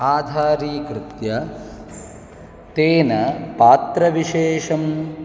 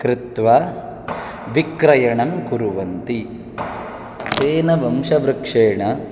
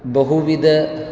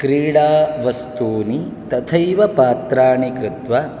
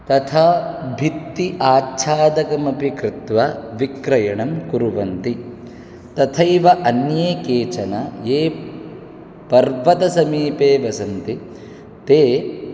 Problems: constant background noise